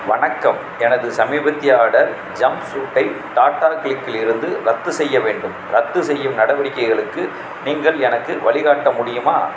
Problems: constant background noise